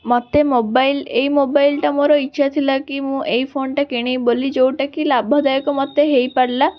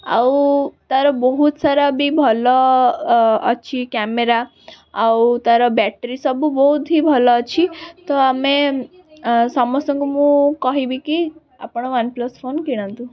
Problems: background sounds at intervals, background conversations at intervals